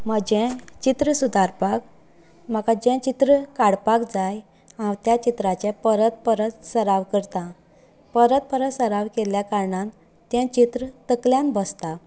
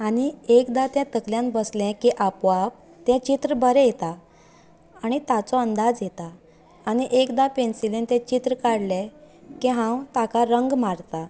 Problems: none marked